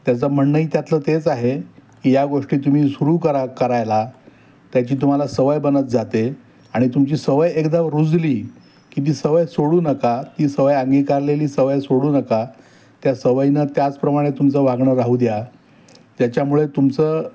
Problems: none marked